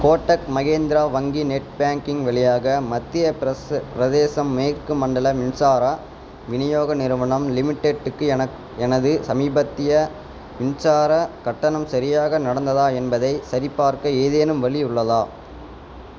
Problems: constant background noise